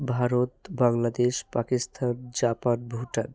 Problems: none marked